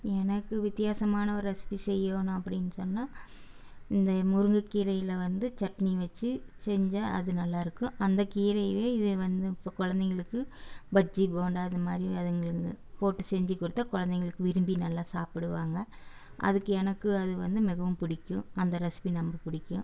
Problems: none marked